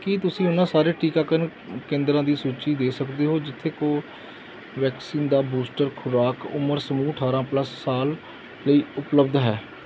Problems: background sounds at intervals